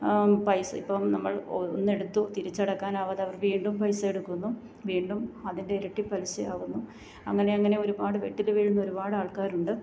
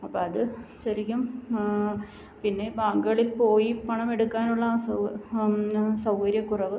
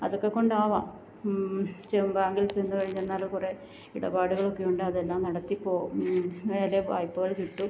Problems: none marked